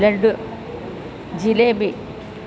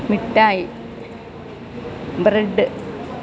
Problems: constant background noise